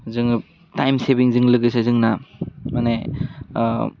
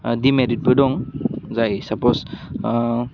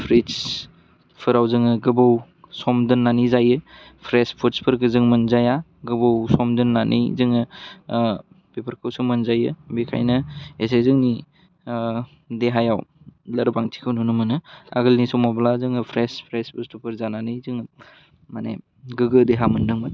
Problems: constant background noise